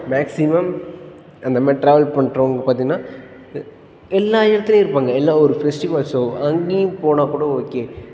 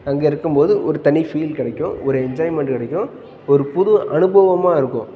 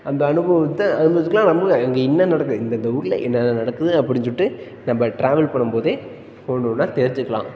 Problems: background sounds at intervals, background conversations at intervals